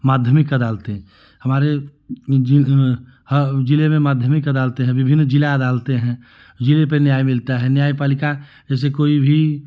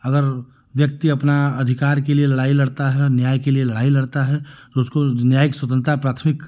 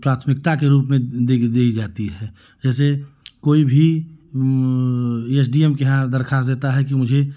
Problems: none marked